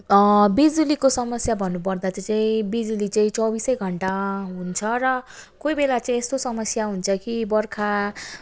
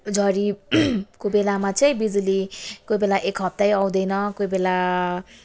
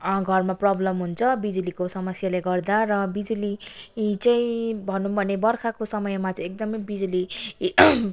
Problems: background sounds at intervals